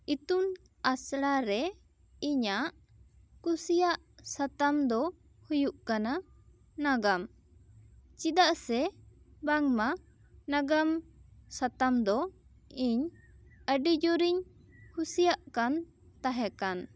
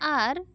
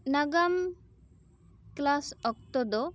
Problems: none marked